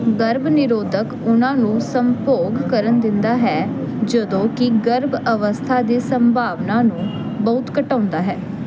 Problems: constant background noise